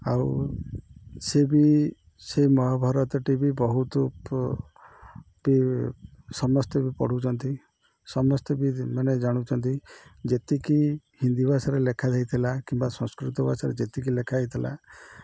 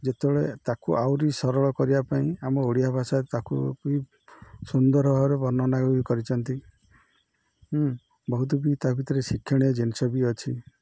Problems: none marked